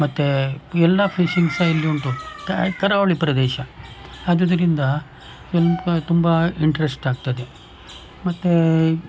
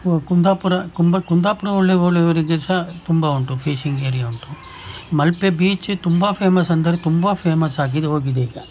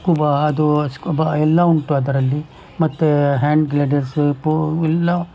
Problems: background sounds at intervals